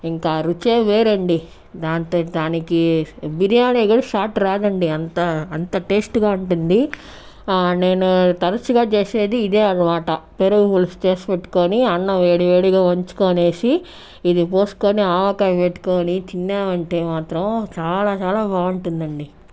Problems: background sounds at intervals